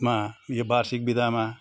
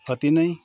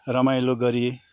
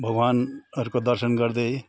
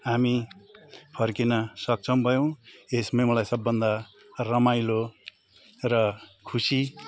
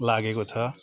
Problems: constant background noise, continuous background conversations